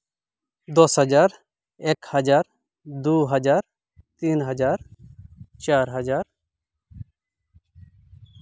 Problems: background sounds at intervals